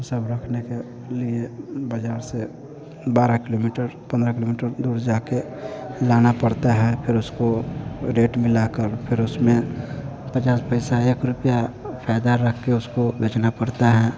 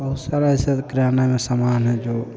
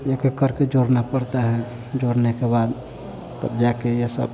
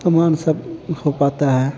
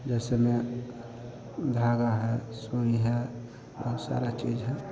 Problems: constant background noise